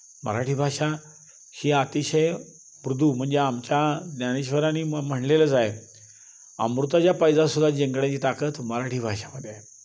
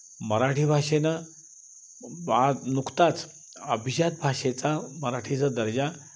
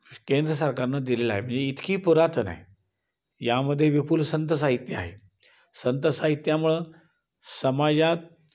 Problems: constant background noise